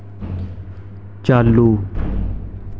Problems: none marked